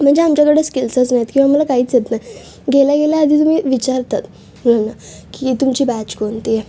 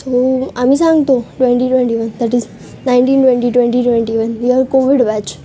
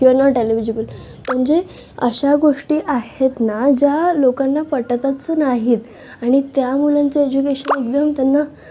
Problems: constant background noise, continuous background conversations